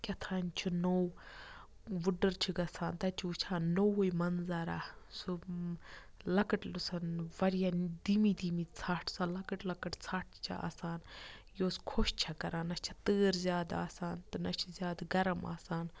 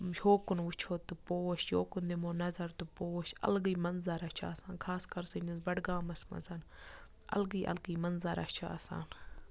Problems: low volume